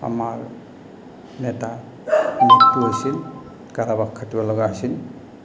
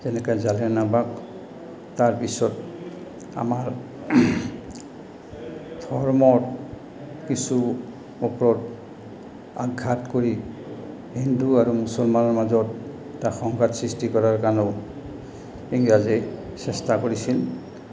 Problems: background sounds at intervals